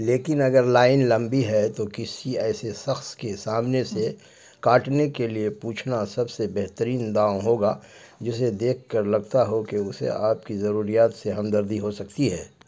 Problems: none marked